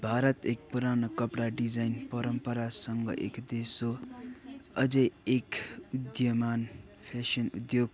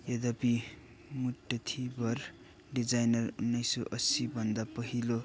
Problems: continuous background conversations, low volume